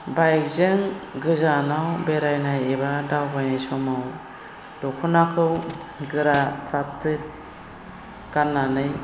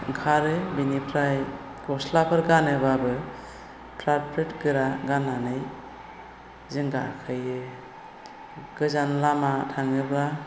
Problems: none marked